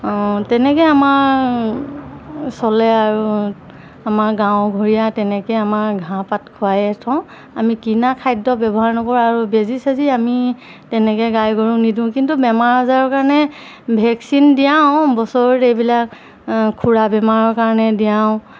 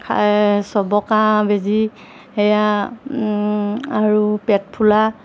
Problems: none marked